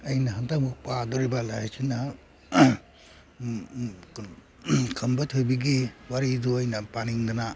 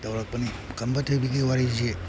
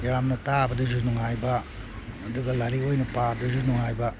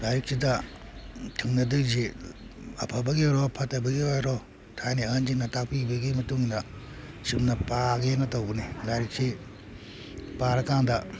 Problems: background sounds at intervals